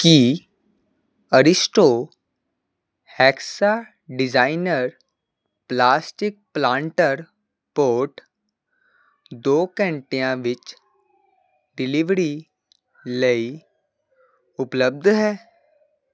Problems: constant background noise